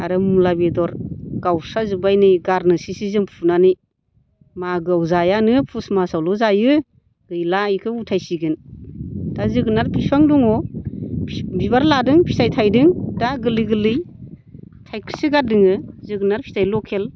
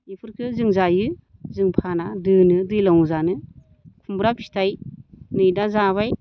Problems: constant background noise